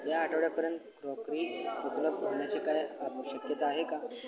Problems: constant background noise, low volume